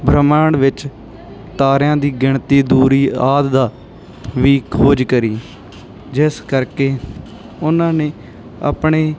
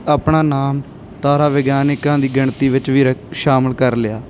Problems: none marked